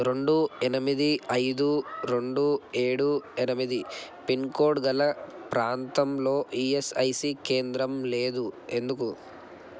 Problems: constant background noise